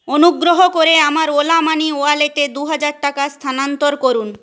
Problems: constant background noise